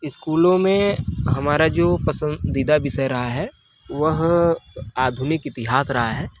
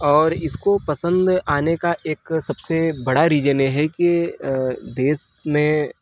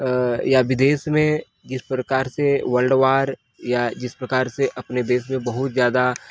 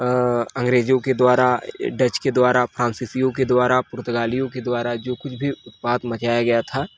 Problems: none marked